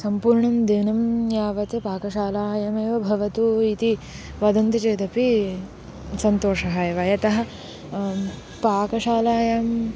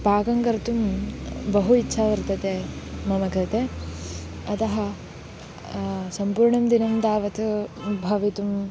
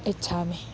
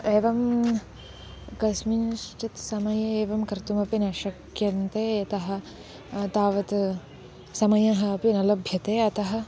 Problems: constant background noise